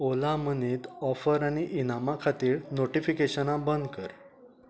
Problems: background sounds at intervals, low volume